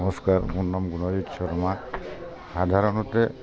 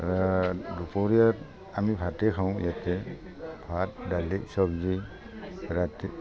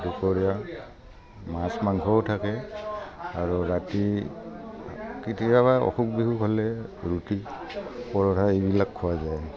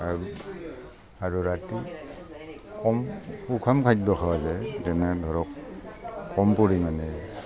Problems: constant background noise